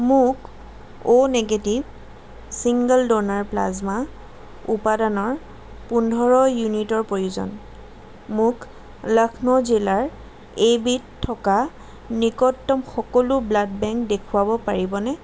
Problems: constant background noise